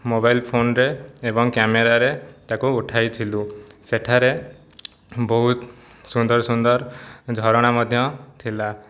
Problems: none marked